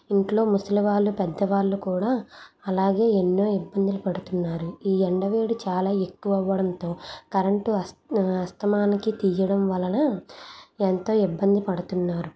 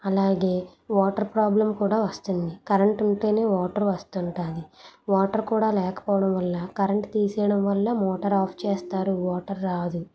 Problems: background conversations at intervals